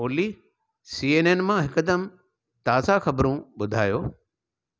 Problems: none marked